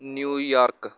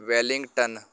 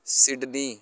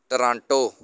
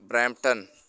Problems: none marked